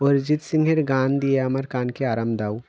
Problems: constant background noise